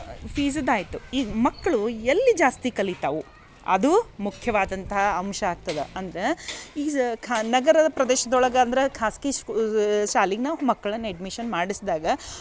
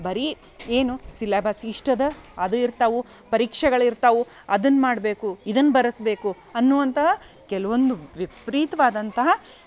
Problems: none marked